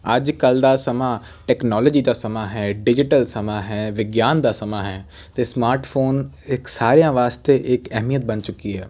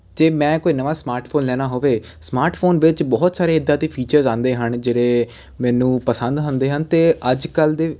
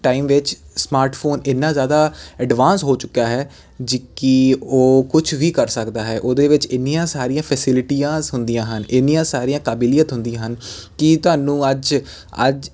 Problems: constant background noise